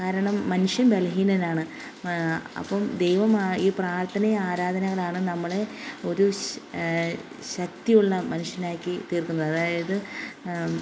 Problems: none marked